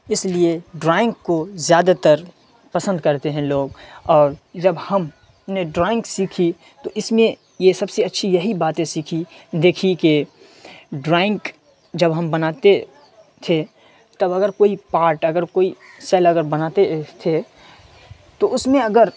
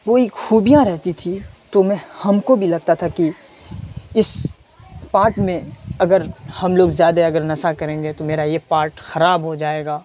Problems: background sounds at intervals